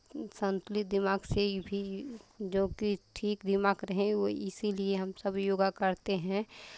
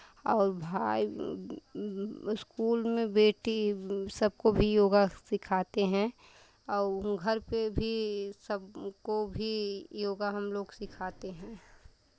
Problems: constant background noise